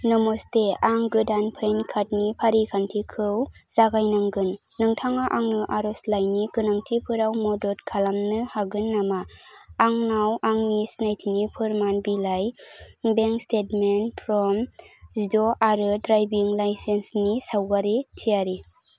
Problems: constant background noise